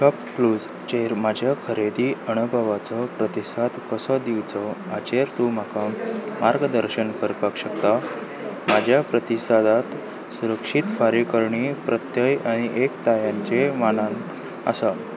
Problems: constant background noise